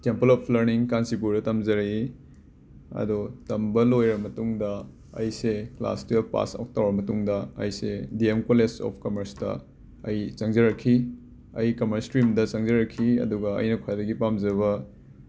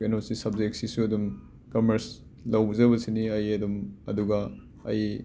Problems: background sounds at intervals